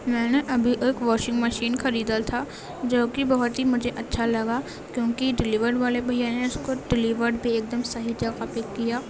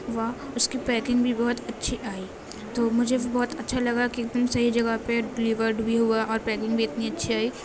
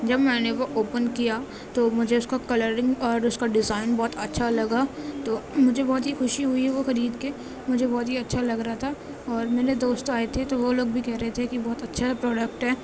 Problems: constant background noise